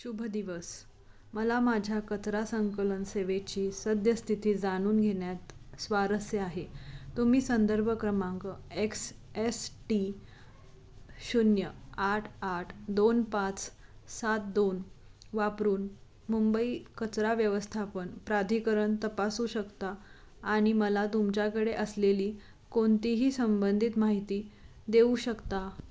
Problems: constant background noise